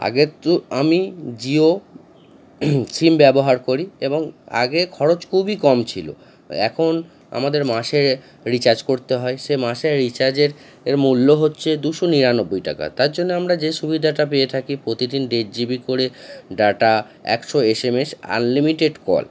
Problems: constant background noise